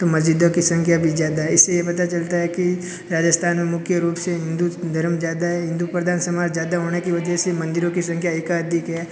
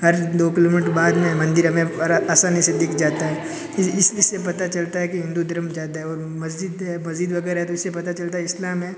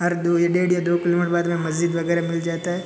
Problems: constant background noise, continuous background conversations